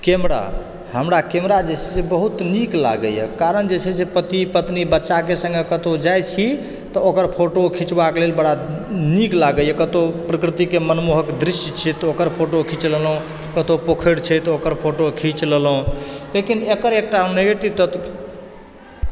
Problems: constant background noise